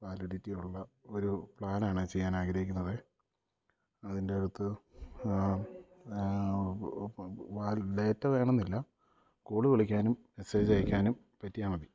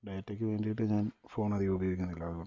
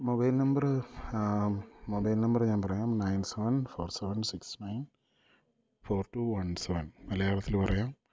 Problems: low volume